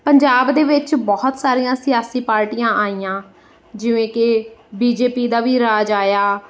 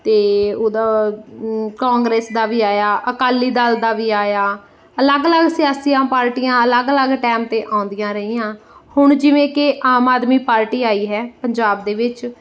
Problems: none marked